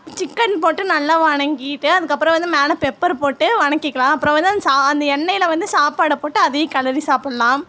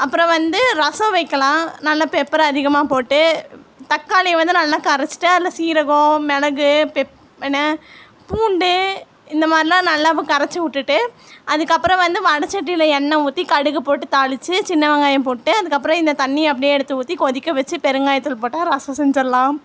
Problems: constant background noise